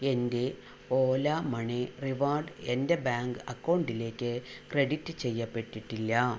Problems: low volume